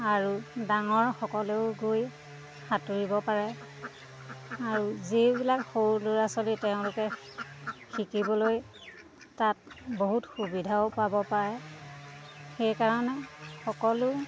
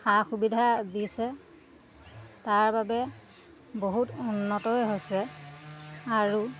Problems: constant background noise